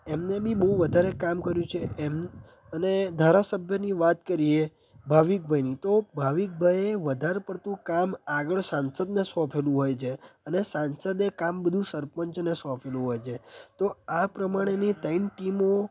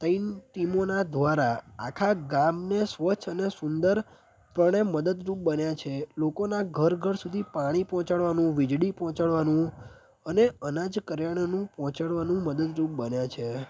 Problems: background sounds at intervals